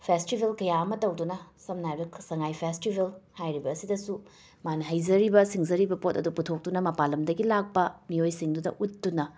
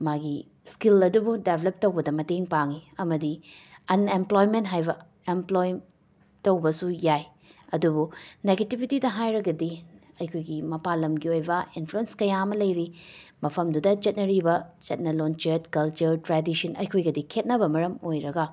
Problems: background sounds at intervals, background conversations at intervals